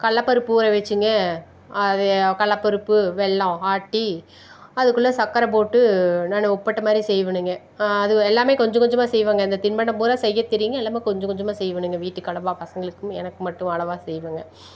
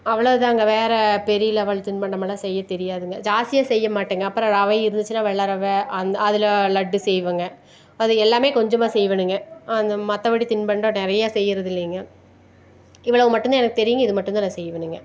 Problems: none marked